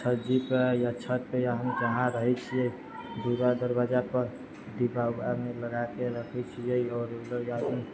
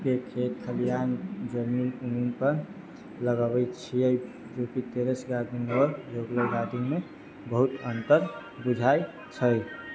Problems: low volume